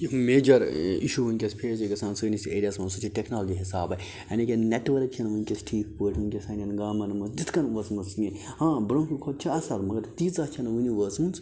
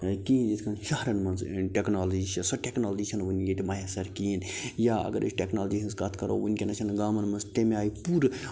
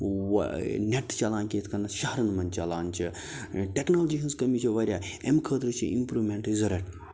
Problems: none marked